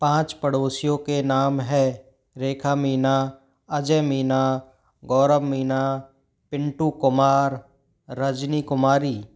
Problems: background sounds at intervals